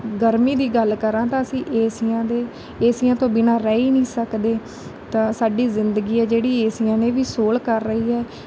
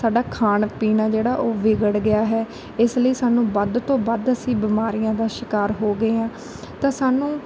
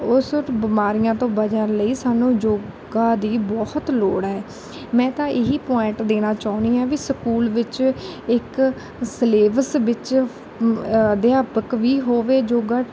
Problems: constant background noise